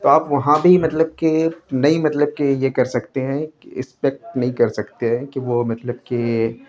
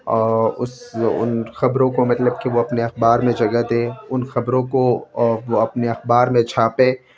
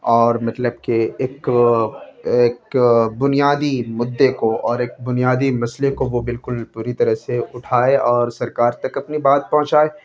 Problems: background sounds at intervals, background conversations at intervals